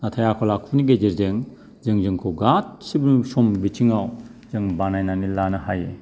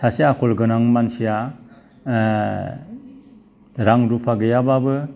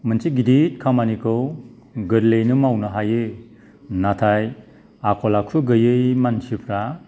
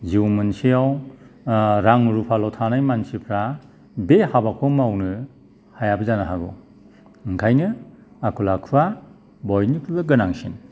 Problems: background sounds at intervals